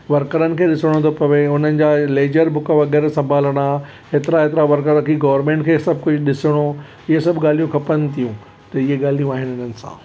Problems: constant background noise